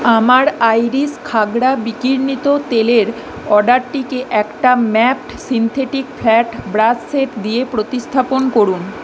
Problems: none marked